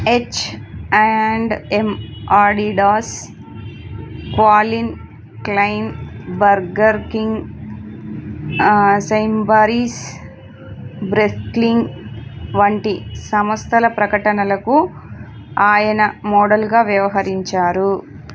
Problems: constant background noise